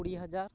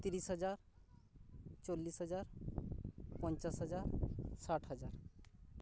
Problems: none marked